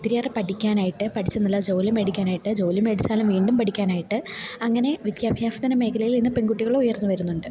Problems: low volume